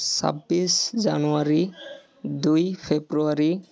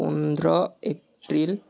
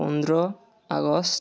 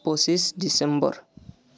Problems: background conversations at intervals